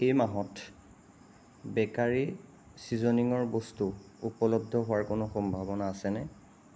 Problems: constant background noise